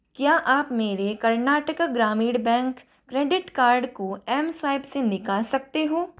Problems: none marked